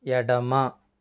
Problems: none marked